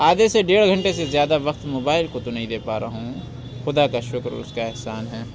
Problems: constant background noise